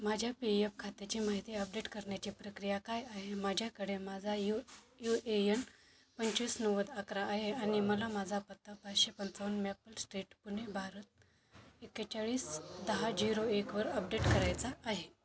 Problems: constant background noise, continuous background conversations